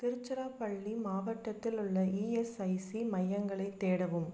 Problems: low volume